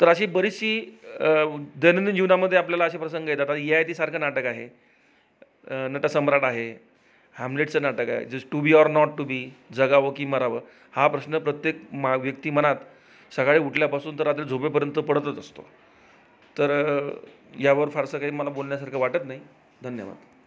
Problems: background sounds at intervals, background conversations at intervals